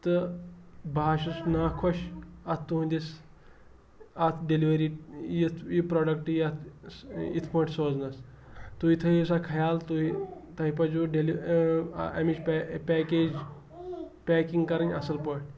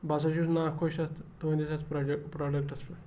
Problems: background sounds at intervals